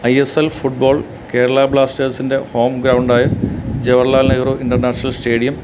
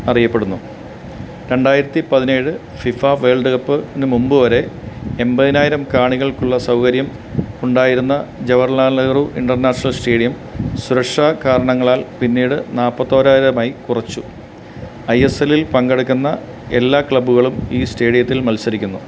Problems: none marked